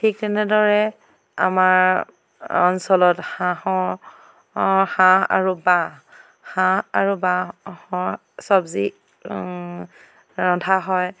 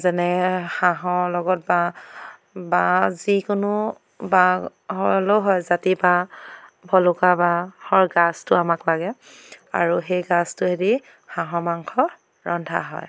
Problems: background sounds at intervals